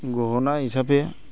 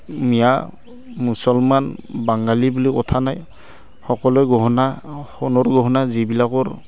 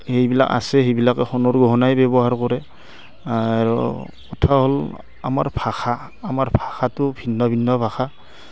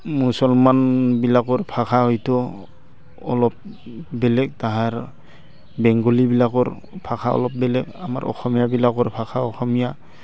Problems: constant background noise